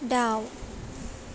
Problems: none marked